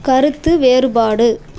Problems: none marked